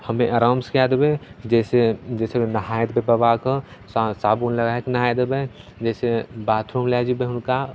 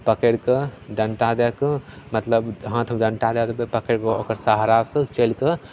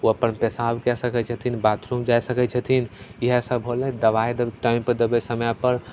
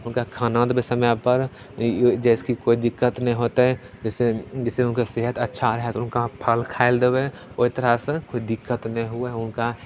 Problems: none marked